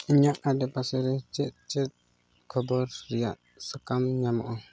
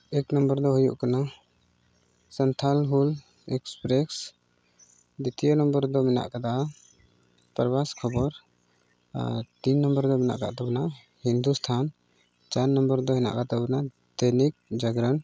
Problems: background sounds at intervals